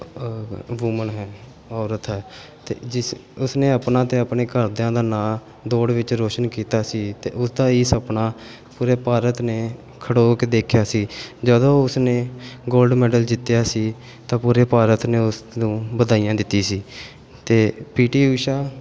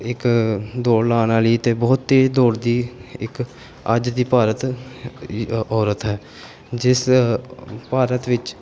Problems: background sounds at intervals